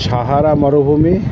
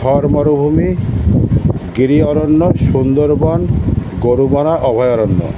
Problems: constant background noise